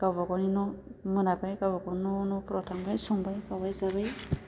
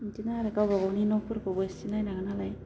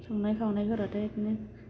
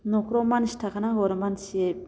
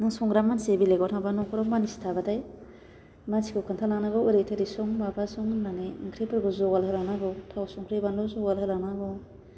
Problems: constant background noise